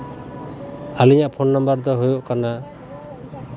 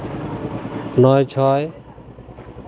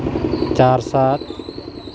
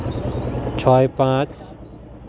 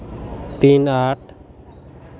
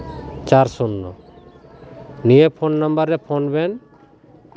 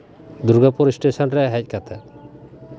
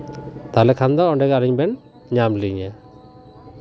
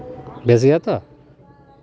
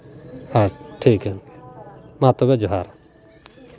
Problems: background sounds at intervals, continuous background conversations